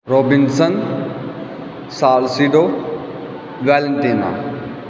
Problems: none marked